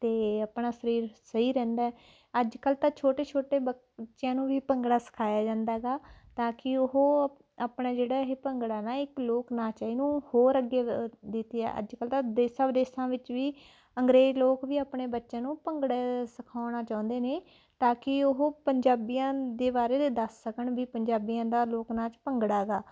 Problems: background sounds at intervals